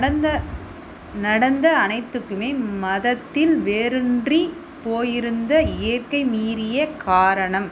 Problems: constant background noise